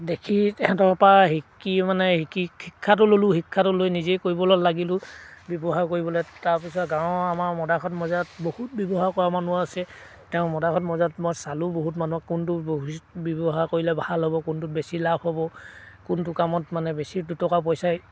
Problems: background sounds at intervals